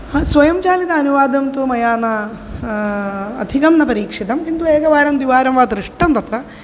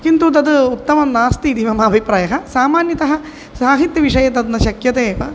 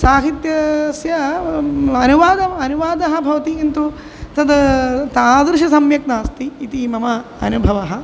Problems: none marked